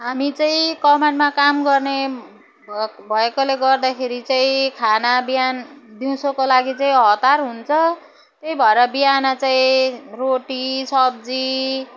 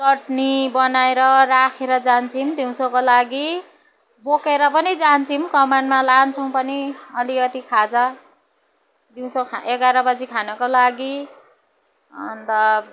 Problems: none marked